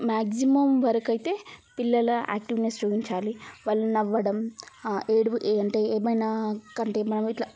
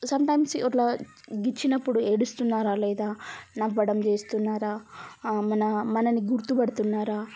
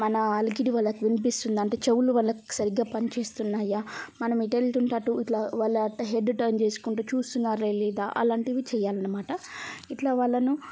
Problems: none marked